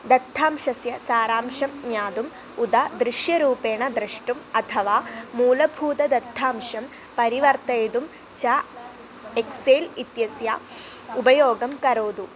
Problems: background sounds at intervals